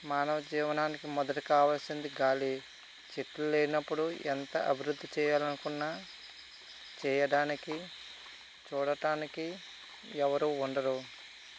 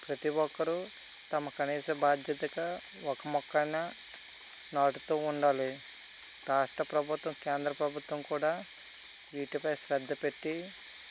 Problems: constant background noise